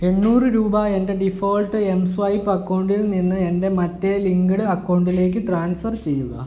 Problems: none marked